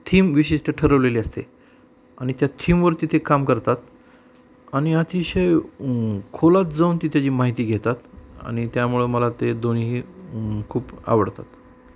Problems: none marked